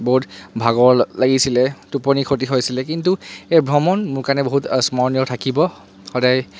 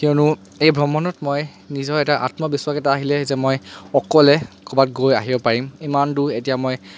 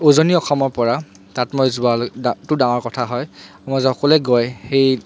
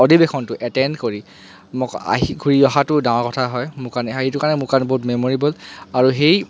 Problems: constant background noise